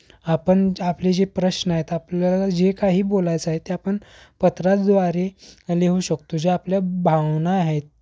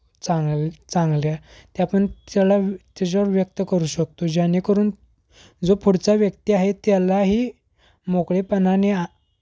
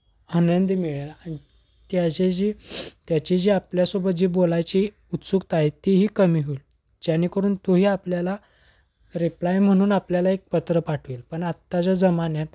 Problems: background sounds at intervals